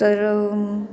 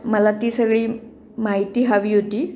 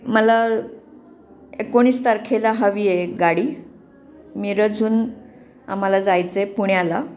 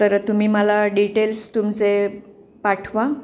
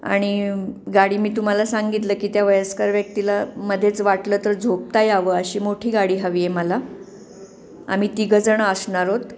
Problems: constant background noise